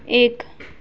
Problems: constant background noise